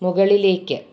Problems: none marked